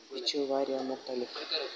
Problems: constant background noise